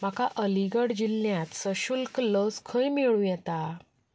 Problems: background sounds at intervals